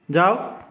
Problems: echo